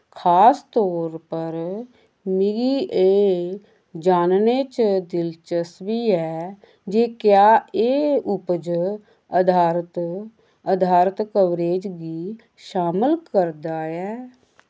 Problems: none marked